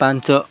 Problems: constant background noise, continuous background conversations